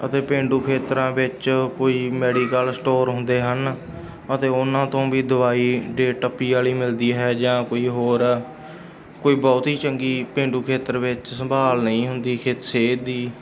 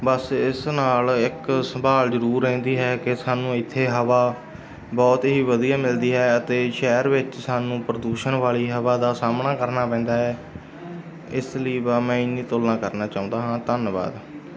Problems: background sounds at intervals, background conversations at intervals